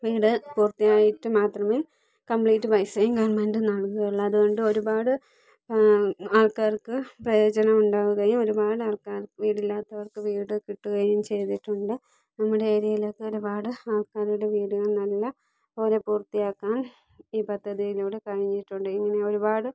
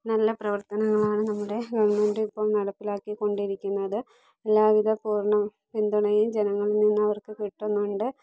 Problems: none marked